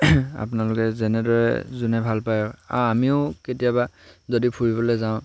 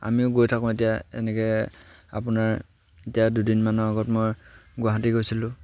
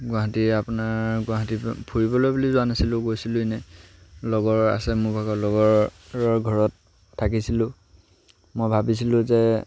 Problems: none marked